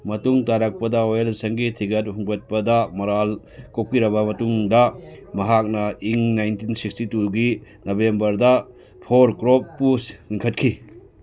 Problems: background sounds at intervals, background conversations at intervals